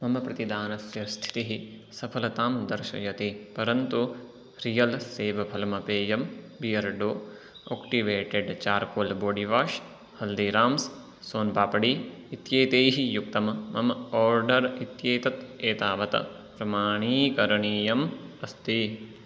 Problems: none marked